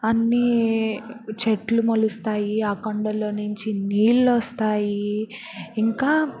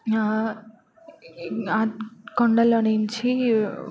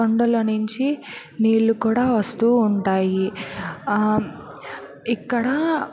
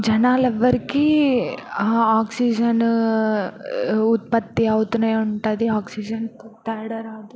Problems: none marked